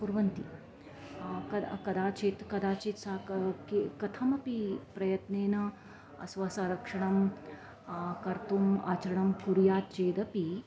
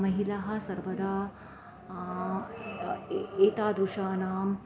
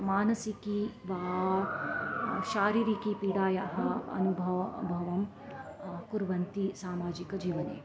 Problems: background sounds at intervals